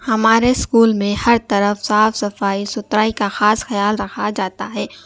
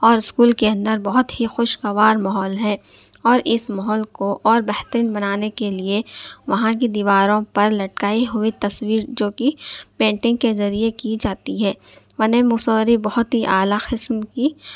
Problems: none marked